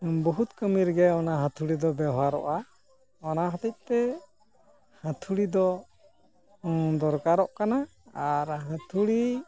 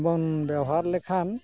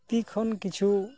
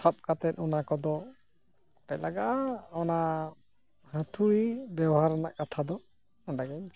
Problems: constant background noise